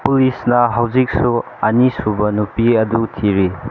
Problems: constant background noise